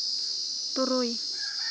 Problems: constant background noise